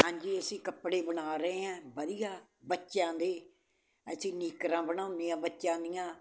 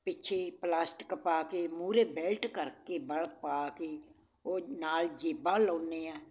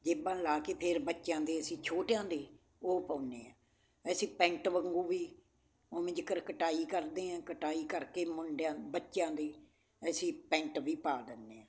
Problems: constant background noise